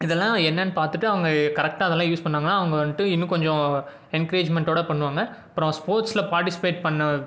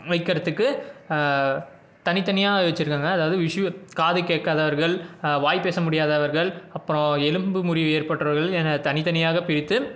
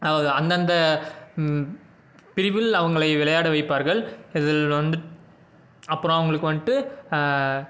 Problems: background sounds at intervals